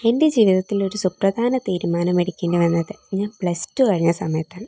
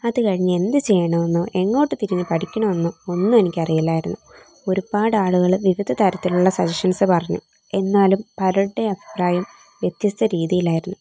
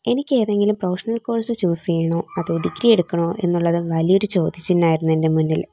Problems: background sounds at intervals